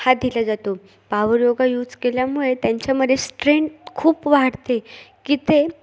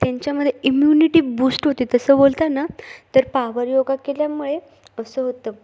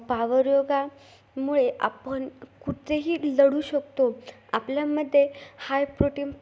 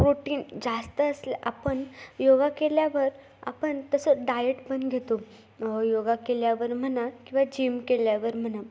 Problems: background sounds at intervals